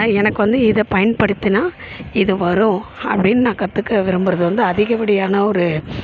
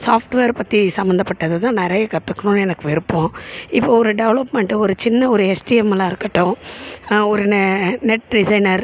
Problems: background sounds at intervals